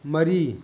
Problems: background sounds at intervals, background conversations at intervals